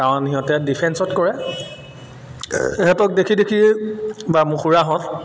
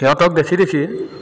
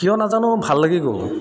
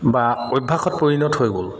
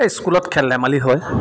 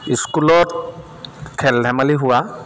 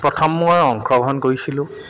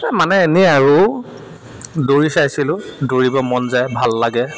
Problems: constant background noise